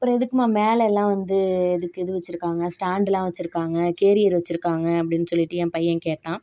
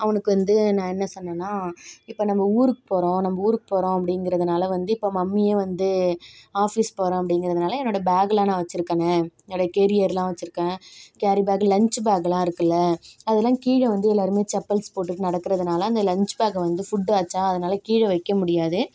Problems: background sounds at intervals